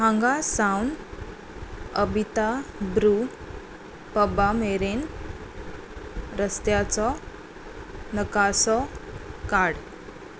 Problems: constant background noise